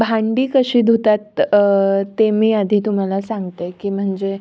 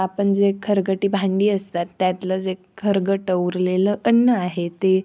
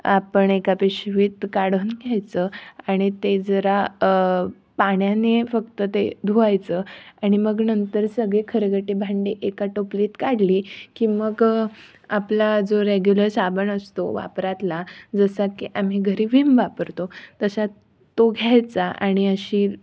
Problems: background sounds at intervals